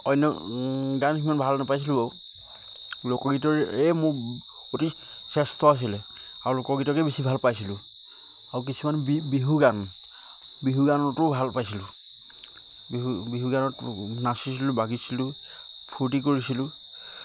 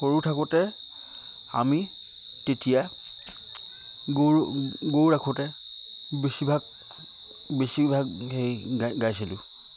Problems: none marked